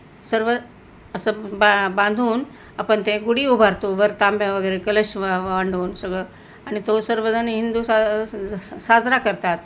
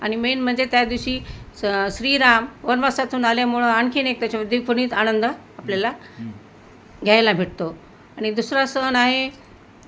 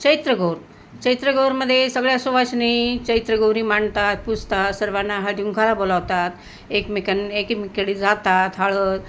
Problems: none marked